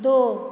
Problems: none marked